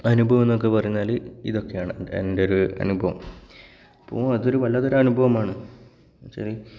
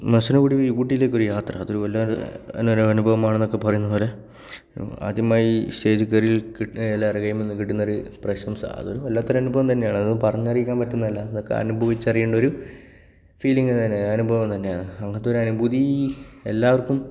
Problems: background sounds at intervals